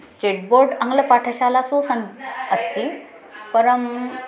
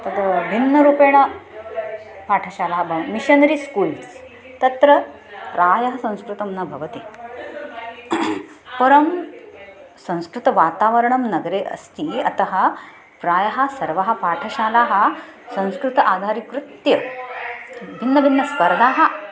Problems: constant background noise, continuous background conversations